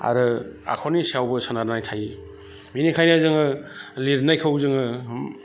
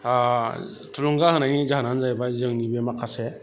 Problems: constant background noise